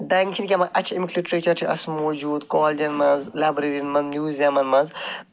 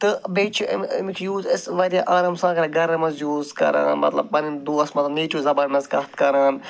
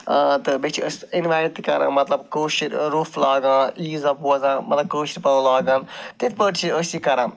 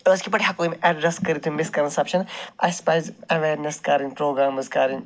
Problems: none marked